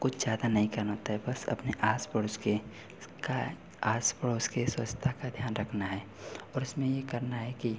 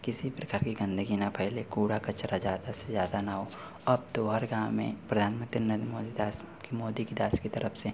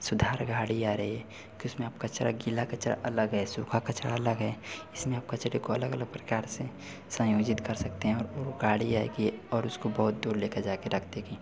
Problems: none marked